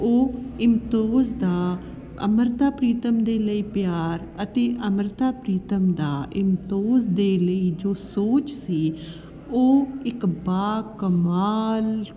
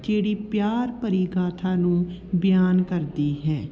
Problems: none marked